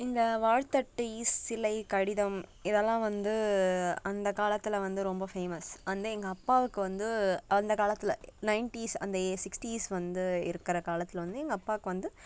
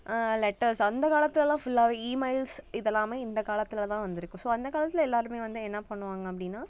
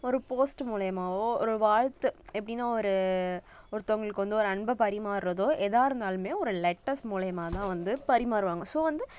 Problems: constant background noise